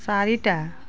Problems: background conversations at intervals